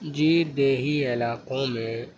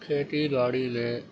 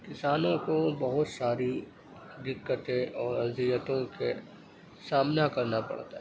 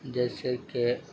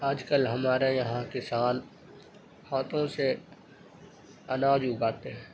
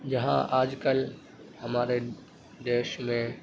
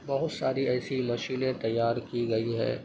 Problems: constant background noise, low volume